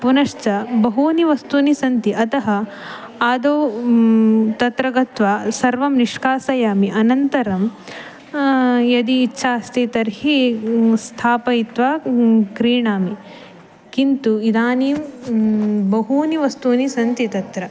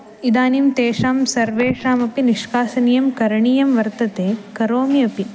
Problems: background sounds at intervals